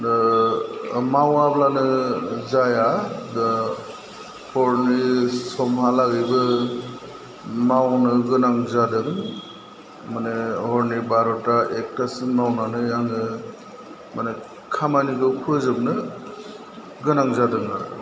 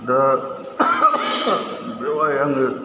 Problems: background sounds at intervals